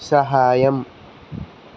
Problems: constant background noise